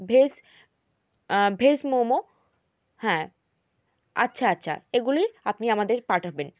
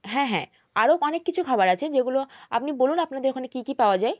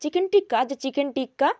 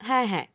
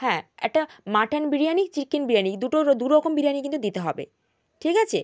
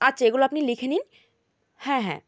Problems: none marked